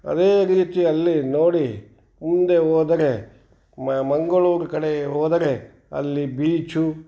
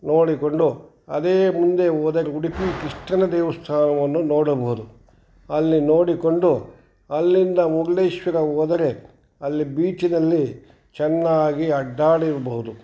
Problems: background conversations at intervals